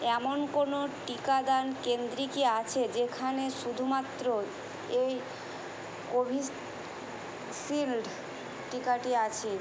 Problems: none marked